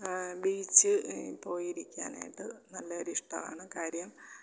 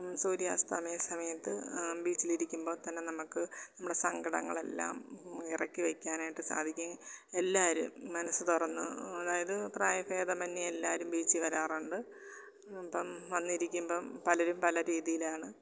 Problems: background sounds at intervals, low volume